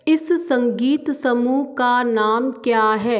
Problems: echo